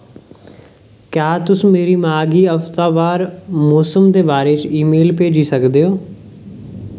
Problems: none marked